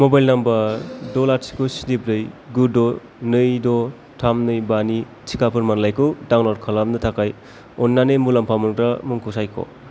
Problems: constant background noise